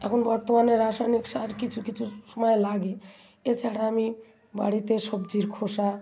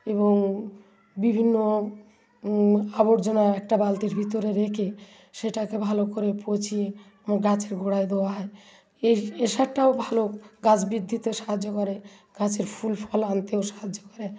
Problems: continuous background conversations